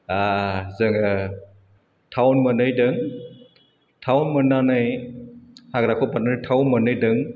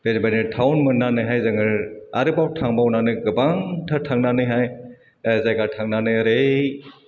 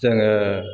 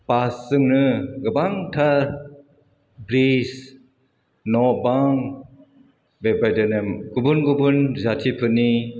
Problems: none marked